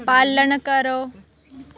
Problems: constant background noise